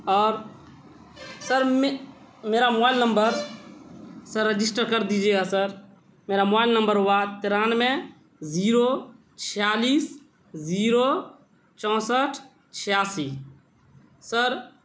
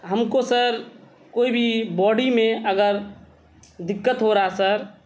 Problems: constant background noise